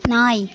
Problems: background conversations at intervals